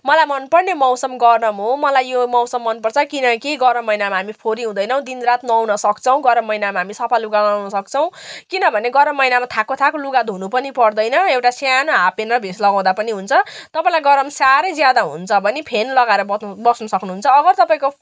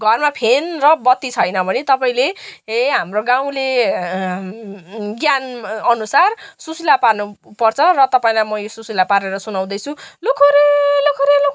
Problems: background sounds at intervals